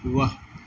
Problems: none marked